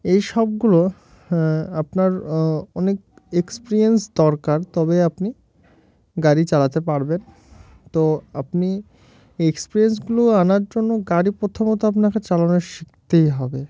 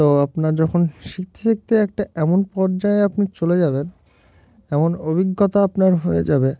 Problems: constant background noise